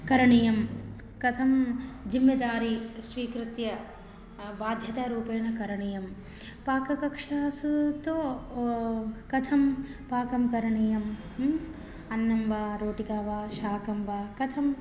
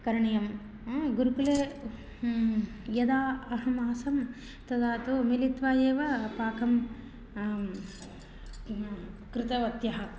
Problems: none marked